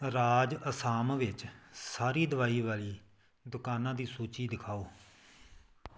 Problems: background sounds at intervals